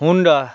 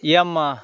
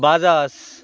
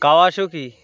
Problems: constant background noise